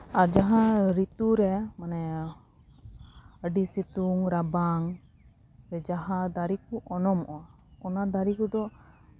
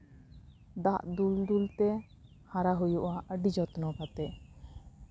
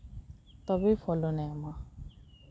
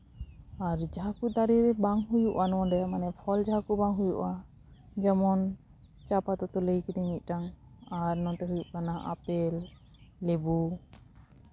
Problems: background sounds at intervals